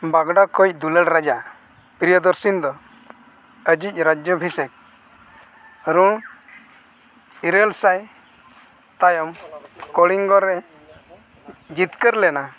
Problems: background sounds at intervals, background conversations at intervals